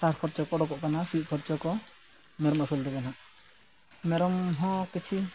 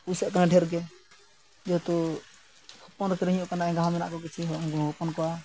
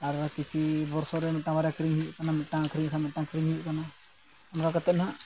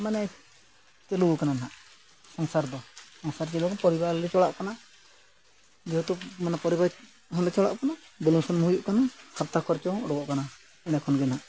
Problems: constant background noise